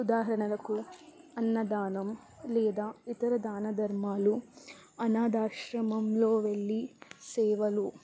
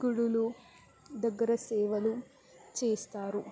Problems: constant background noise, low volume